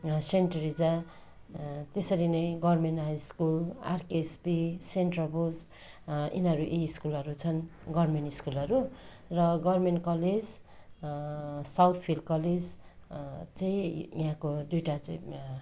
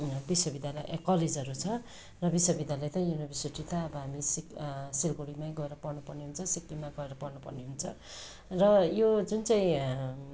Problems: continuous background conversations